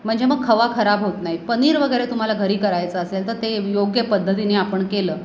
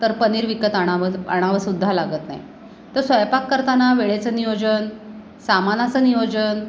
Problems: none marked